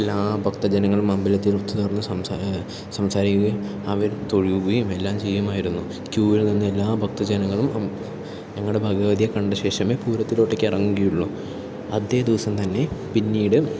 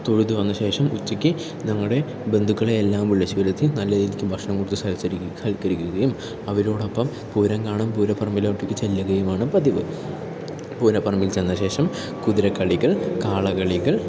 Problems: none marked